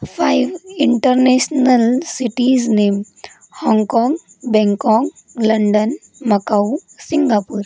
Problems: none marked